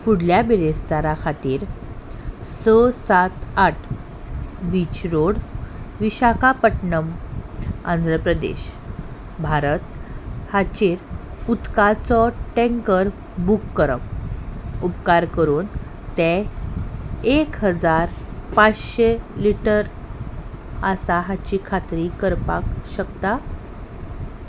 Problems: background sounds at intervals